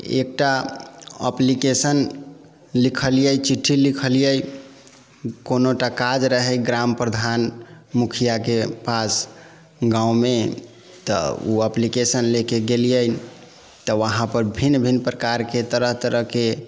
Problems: background sounds at intervals